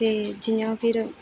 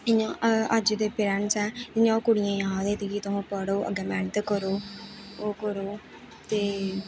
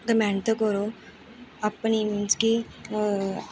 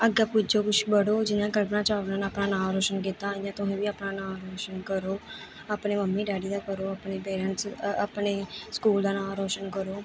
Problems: constant background noise